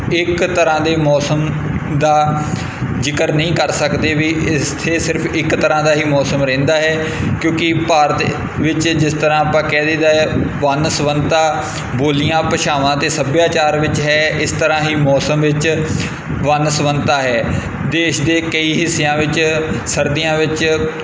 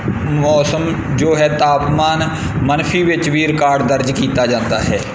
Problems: constant background noise